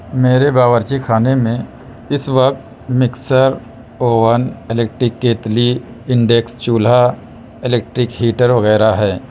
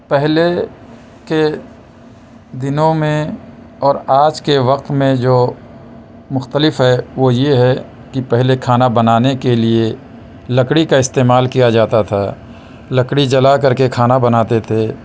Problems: constant background noise